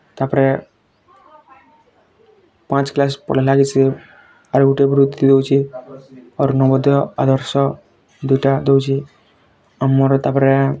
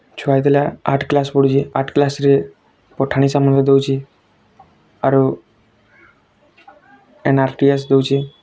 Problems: constant background noise